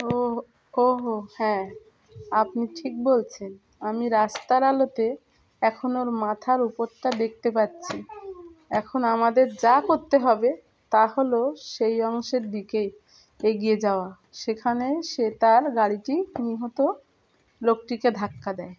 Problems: background sounds at intervals, background conversations at intervals